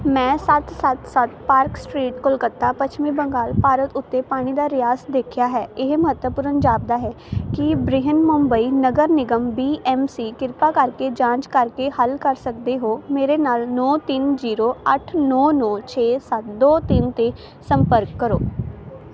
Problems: constant background noise